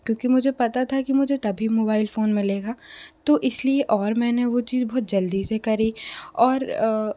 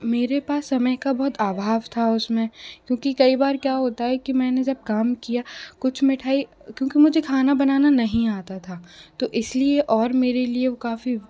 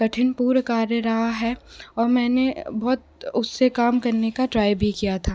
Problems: constant background noise